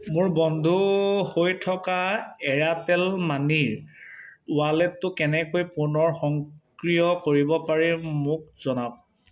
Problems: none marked